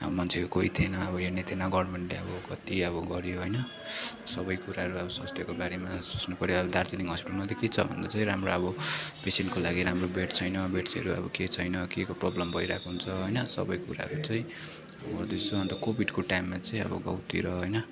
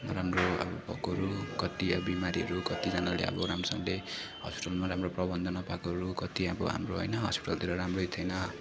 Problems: background sounds at intervals, continuous background conversations